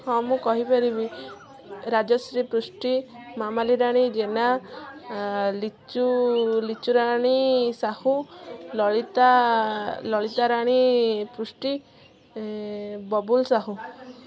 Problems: continuous background conversations